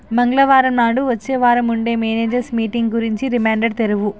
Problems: none marked